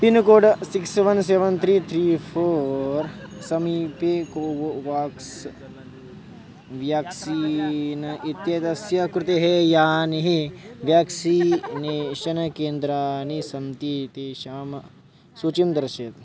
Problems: constant background noise